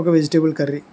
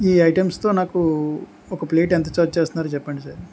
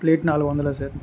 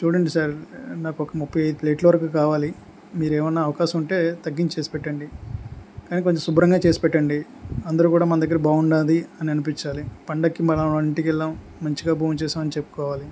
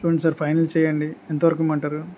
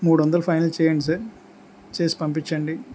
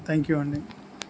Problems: constant background noise